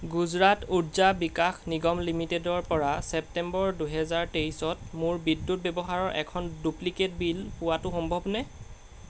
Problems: constant background noise